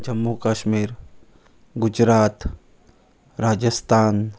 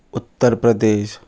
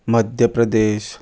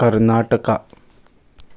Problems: constant background noise